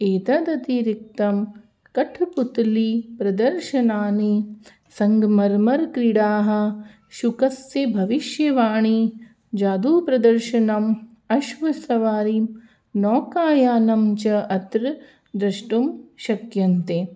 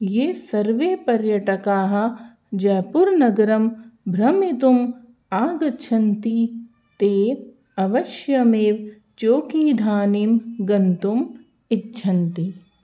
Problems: none marked